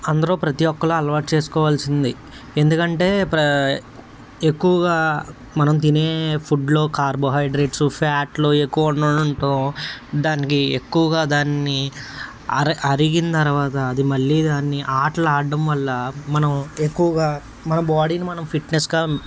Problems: none marked